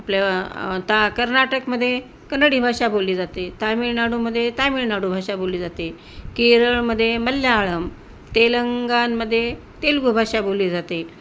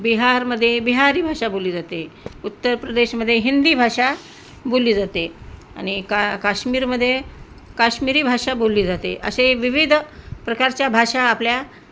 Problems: constant background noise